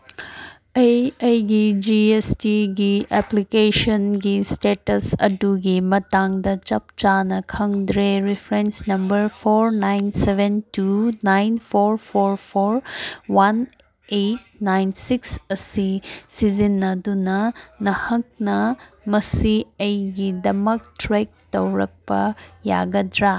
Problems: none marked